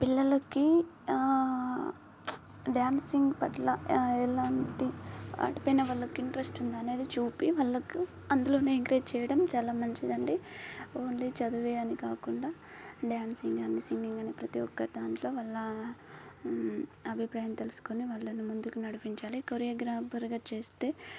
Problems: constant background noise